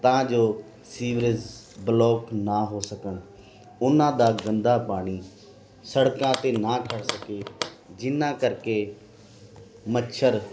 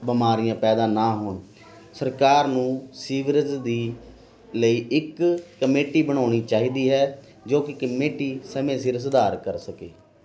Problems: constant background noise